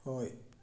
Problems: low volume